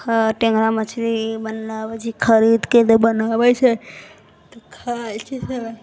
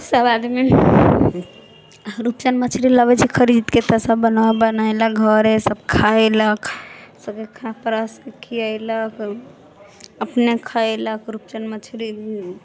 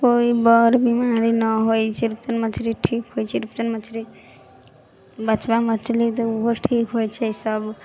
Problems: low volume